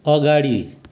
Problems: none marked